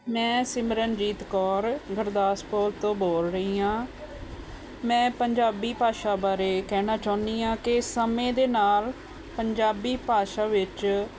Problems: none marked